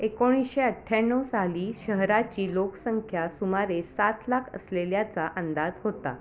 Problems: constant background noise, continuous background conversations